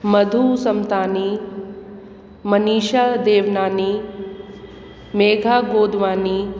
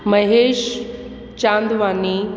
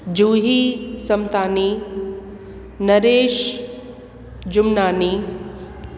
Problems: constant background noise, echo